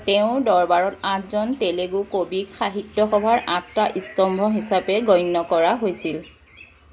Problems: constant background noise, background conversations at intervals